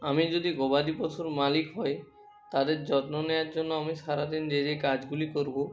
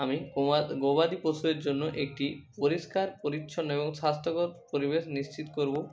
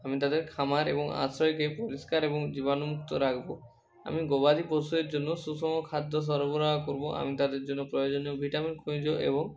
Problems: constant background noise